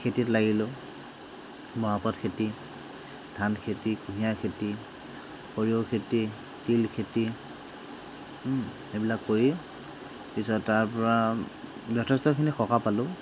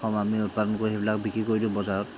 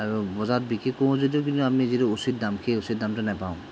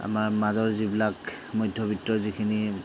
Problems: background sounds at intervals